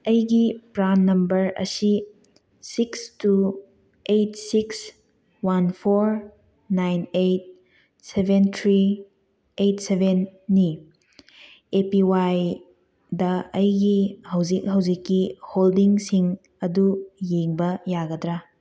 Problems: none marked